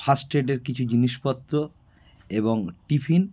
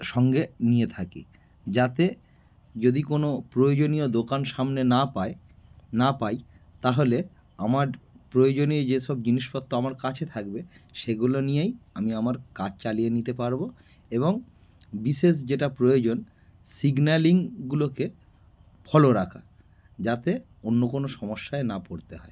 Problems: none marked